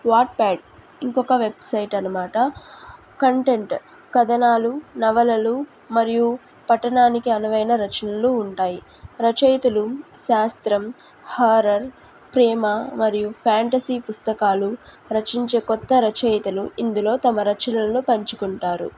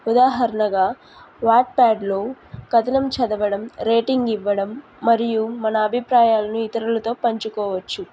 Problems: background sounds at intervals